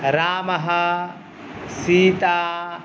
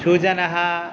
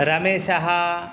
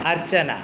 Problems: none marked